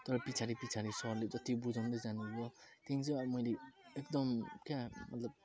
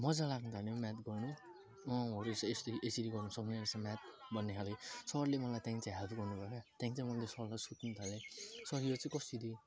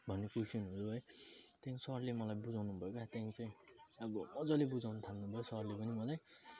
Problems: background sounds at intervals